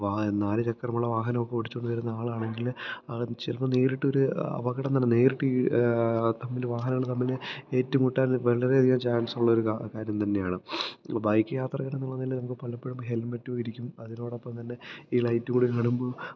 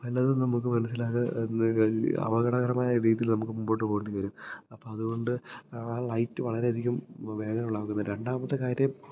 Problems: low volume